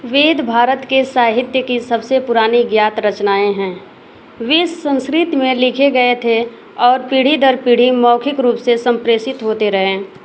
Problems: constant background noise